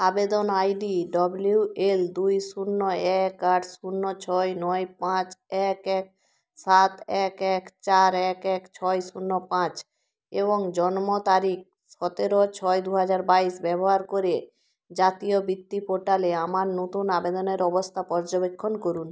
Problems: none marked